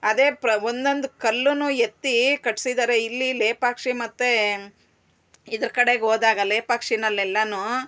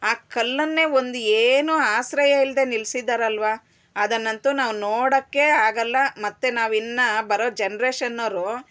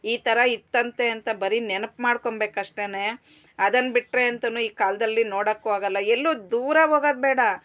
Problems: constant background noise